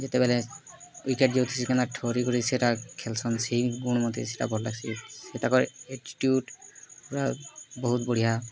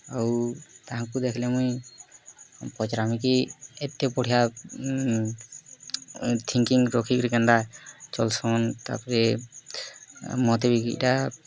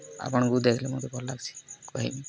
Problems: constant background noise, continuous background conversations